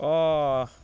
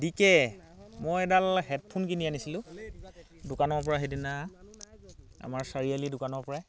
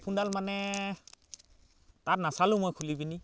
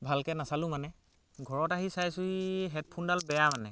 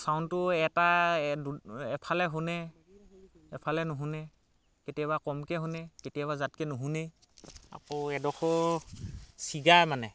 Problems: none marked